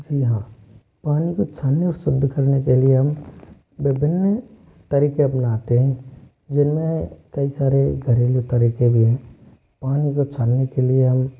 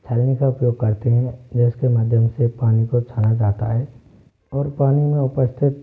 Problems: none marked